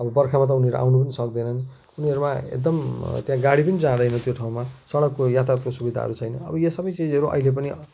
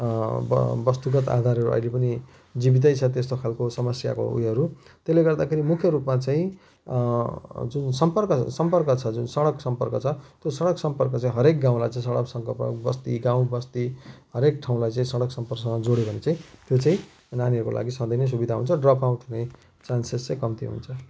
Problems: constant background noise